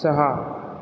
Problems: none marked